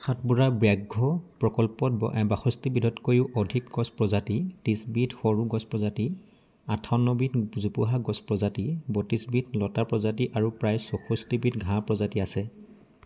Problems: constant background noise